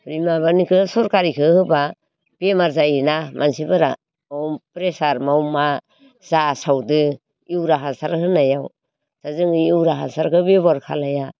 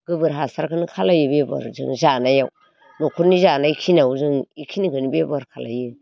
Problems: constant background noise